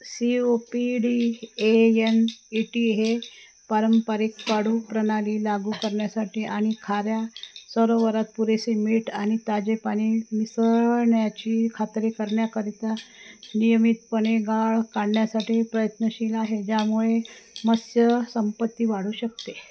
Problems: constant background noise